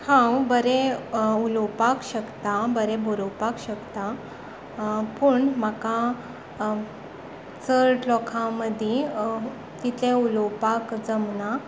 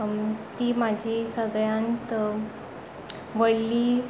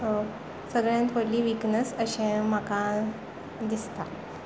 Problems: background sounds at intervals